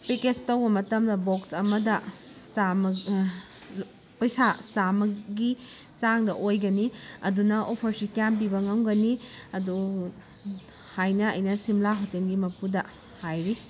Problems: constant background noise